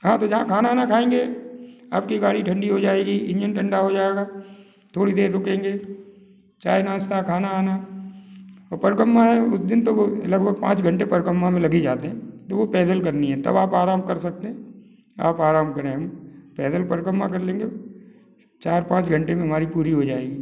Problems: none marked